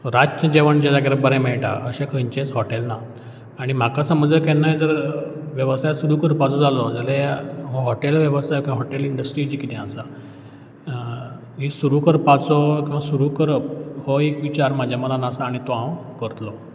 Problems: background sounds at intervals